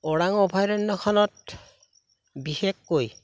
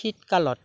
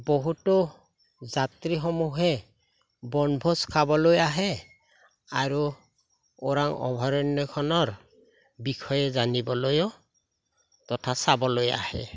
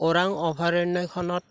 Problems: none marked